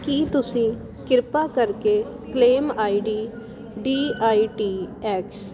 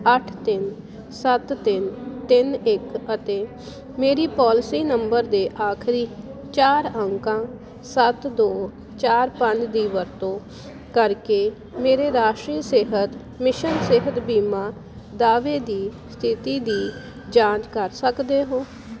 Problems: constant background noise